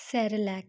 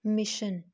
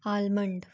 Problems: constant background noise